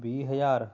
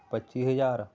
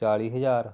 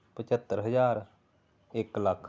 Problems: background sounds at intervals